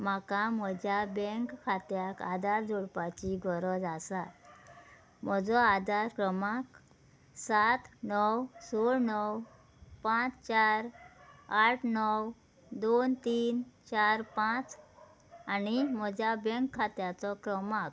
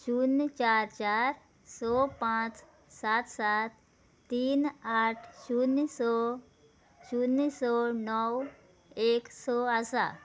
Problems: background sounds at intervals